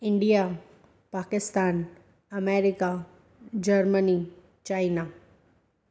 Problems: echo